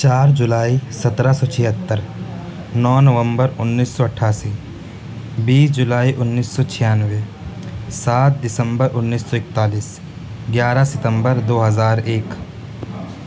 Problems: constant background noise